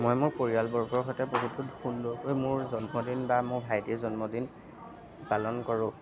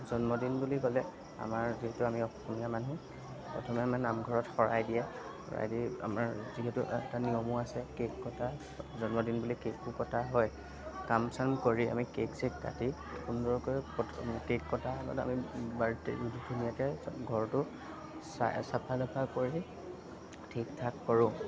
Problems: background sounds at intervals, background conversations at intervals